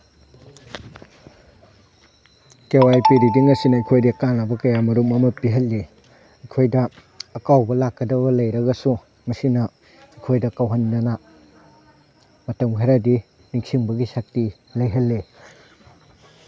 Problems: none marked